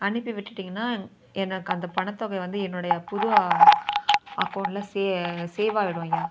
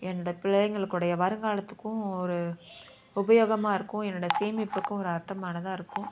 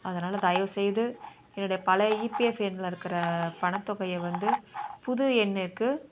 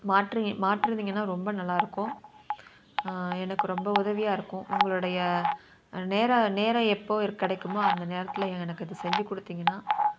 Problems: constant background noise, continuous background conversations